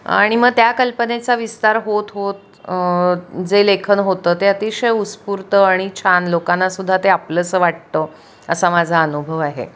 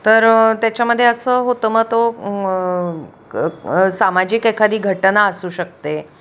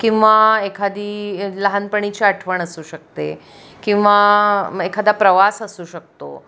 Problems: background sounds at intervals